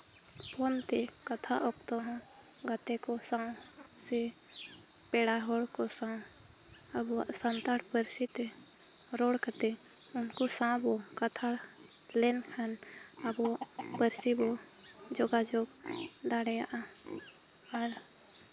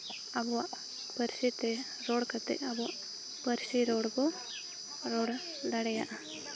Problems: constant background noise, background conversations at intervals